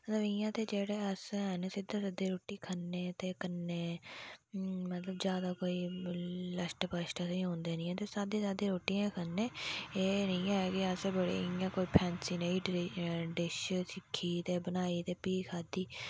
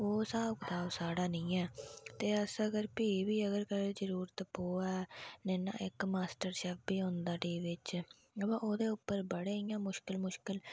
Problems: background sounds at intervals, low volume